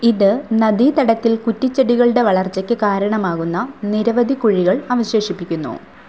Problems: none marked